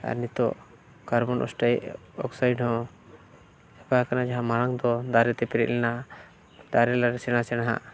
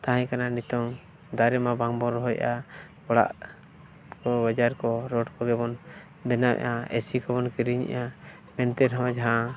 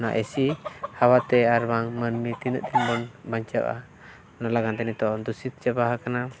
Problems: continuous background conversations